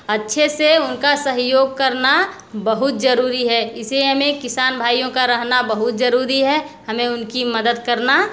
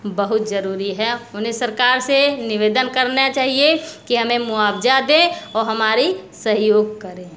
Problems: none marked